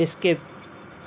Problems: none marked